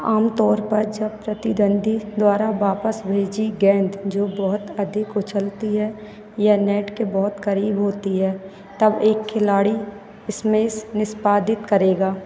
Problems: constant background noise